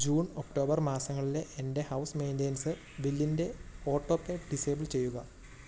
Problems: background sounds at intervals